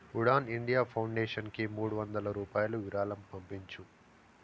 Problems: constant background noise